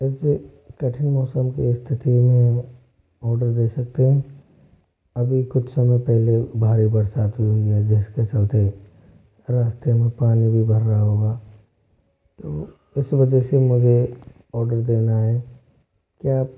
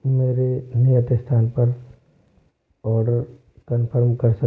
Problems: low volume